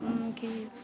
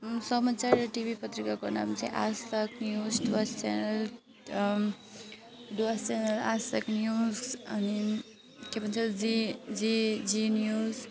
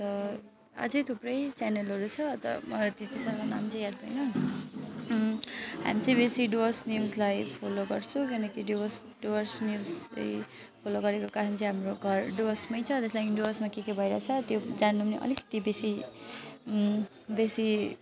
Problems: constant background noise